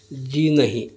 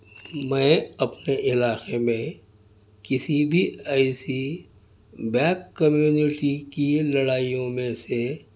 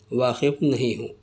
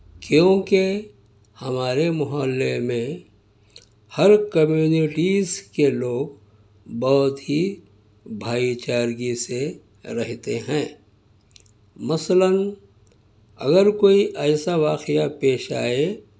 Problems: none marked